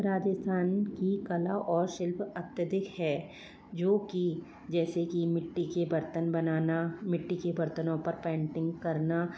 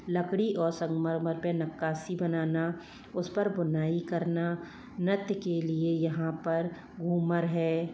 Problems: low volume